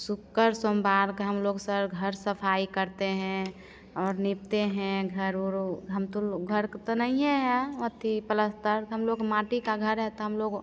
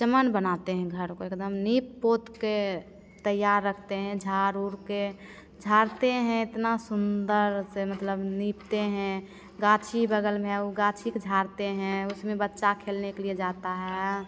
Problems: constant background noise